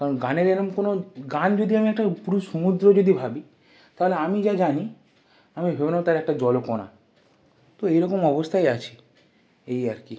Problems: none marked